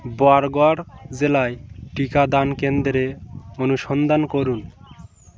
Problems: background sounds at intervals, continuous background conversations